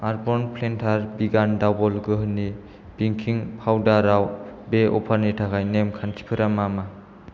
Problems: none marked